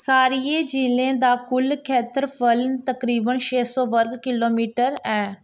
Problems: constant background noise